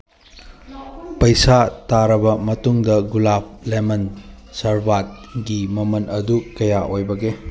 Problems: background sounds at intervals